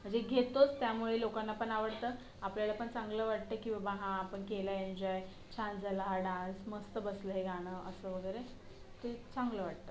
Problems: background sounds at intervals